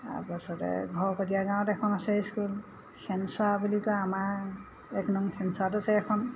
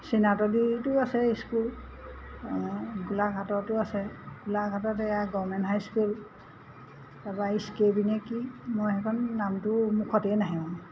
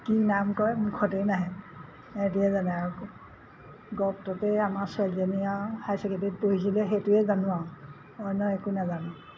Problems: none marked